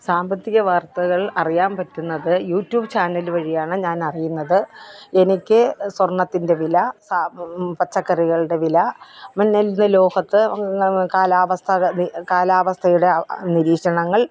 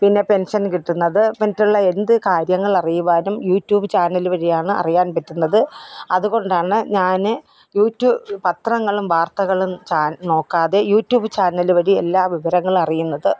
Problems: background sounds at intervals